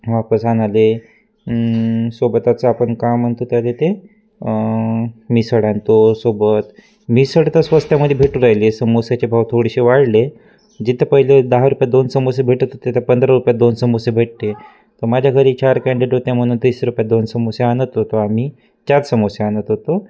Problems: constant background noise, continuous background conversations